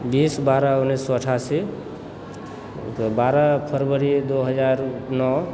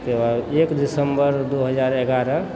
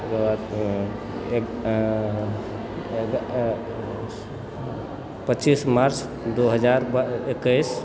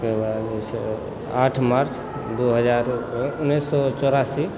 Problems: background conversations at intervals